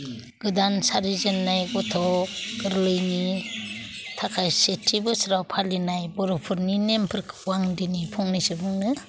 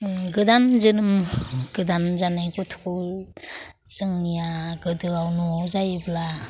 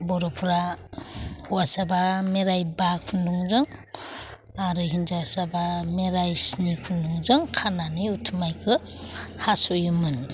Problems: constant background noise